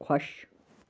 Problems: constant background noise